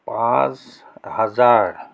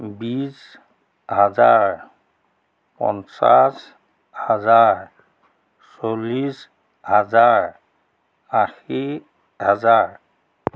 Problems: none marked